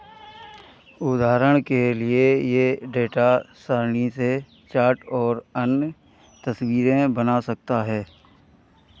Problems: background conversations at intervals